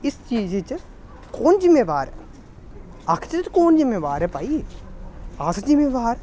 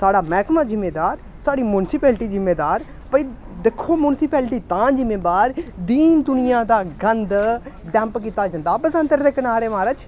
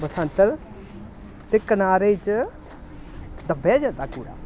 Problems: none marked